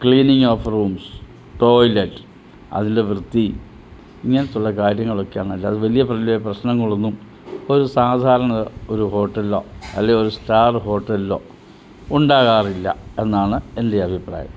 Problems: none marked